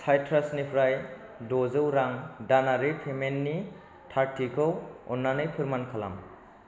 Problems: constant background noise